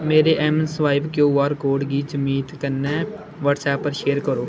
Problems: constant background noise